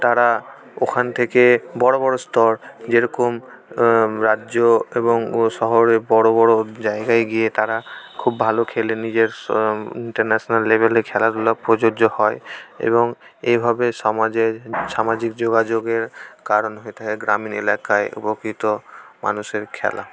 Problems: constant background noise